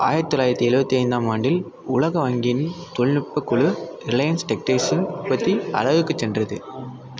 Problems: continuous background conversations